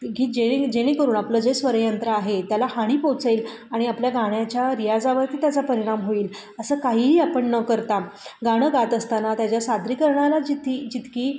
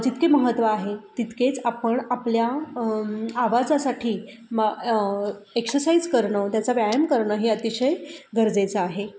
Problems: constant background noise, echo